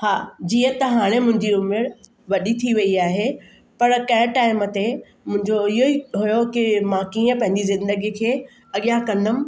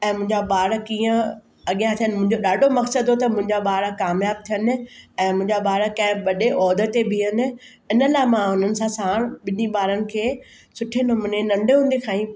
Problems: constant background noise